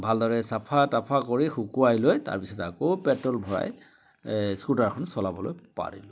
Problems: constant background noise